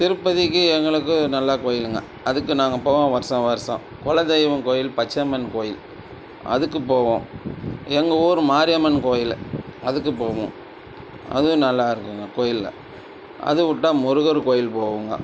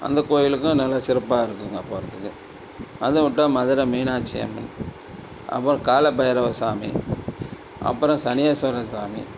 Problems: constant background noise